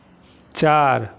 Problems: none marked